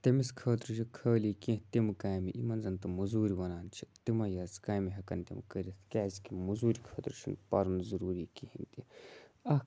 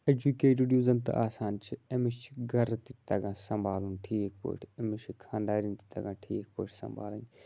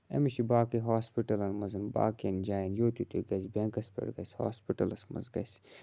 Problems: constant background noise